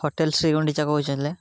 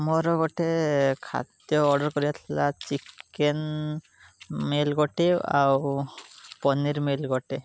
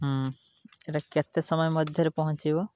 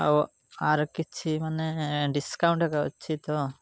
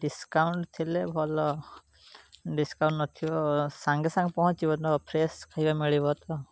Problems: constant background noise